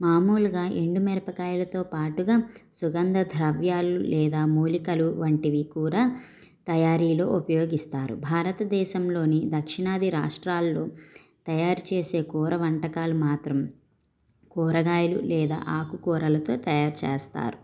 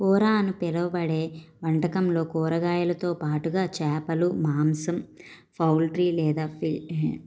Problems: background sounds at intervals